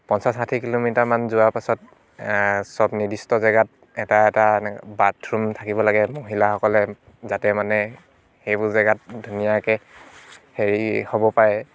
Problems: background sounds at intervals